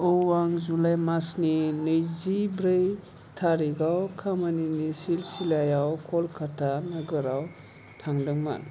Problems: low volume